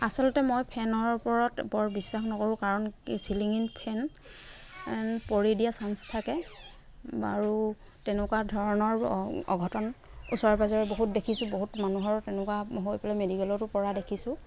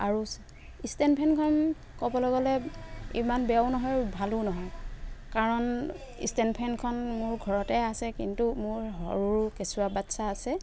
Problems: constant background noise